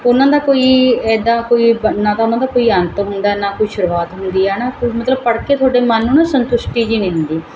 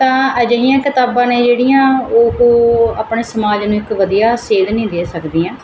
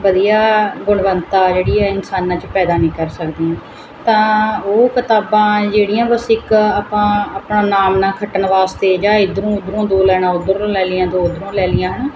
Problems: constant background noise